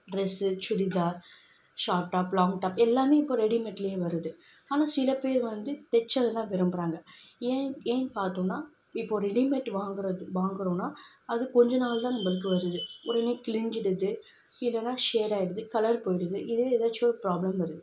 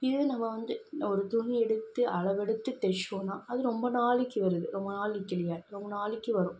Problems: background sounds at intervals